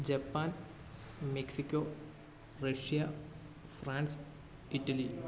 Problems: background conversations at intervals, low volume